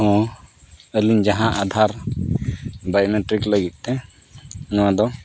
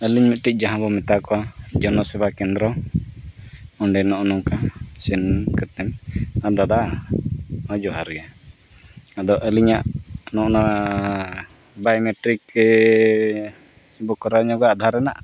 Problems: constant background noise